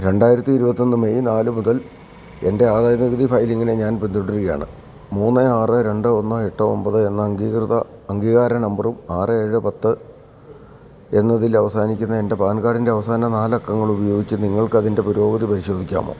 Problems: constant background noise